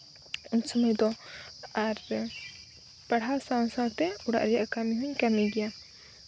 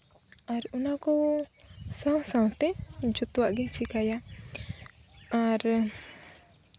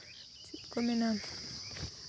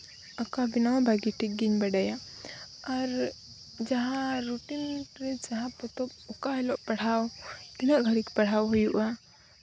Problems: none marked